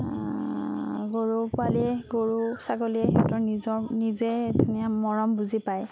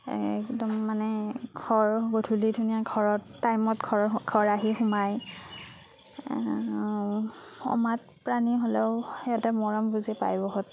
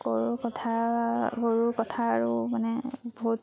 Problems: none marked